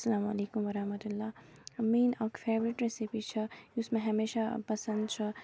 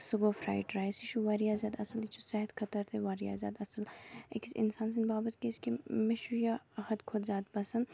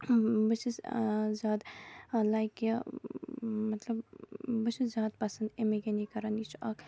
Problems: background sounds at intervals